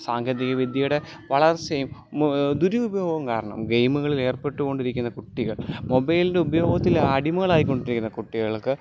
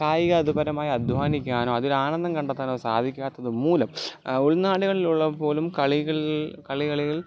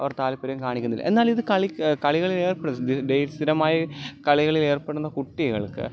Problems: background sounds at intervals